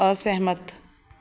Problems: none marked